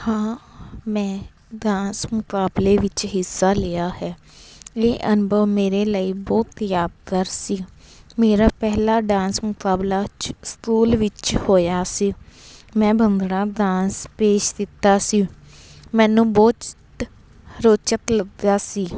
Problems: none marked